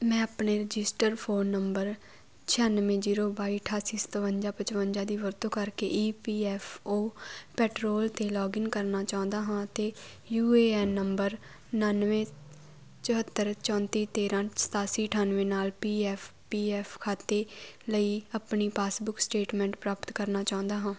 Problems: constant background noise